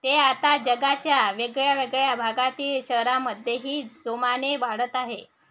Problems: background sounds at intervals